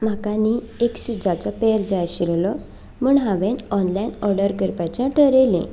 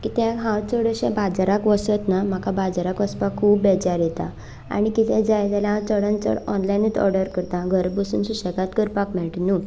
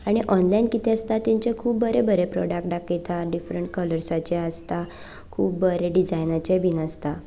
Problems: none marked